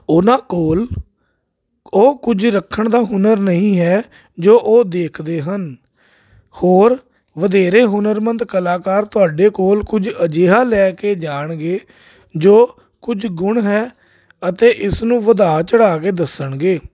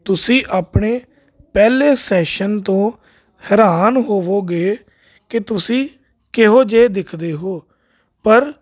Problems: none marked